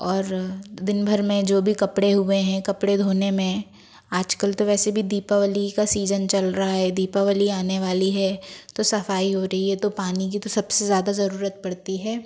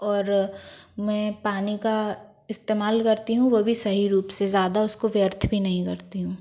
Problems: background sounds at intervals